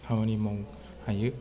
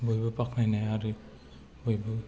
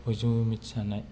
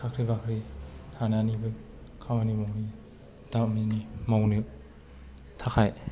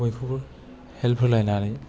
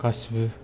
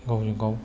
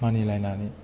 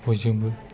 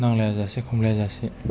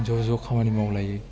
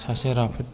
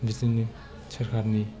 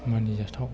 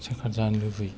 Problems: low volume